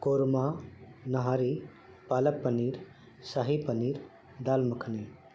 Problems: constant background noise